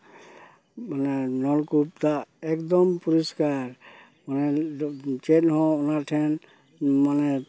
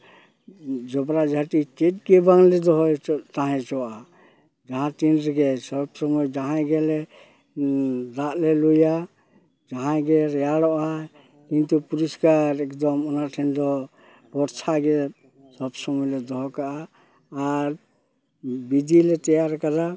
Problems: none marked